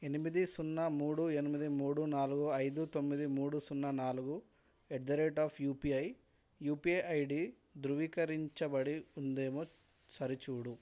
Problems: none marked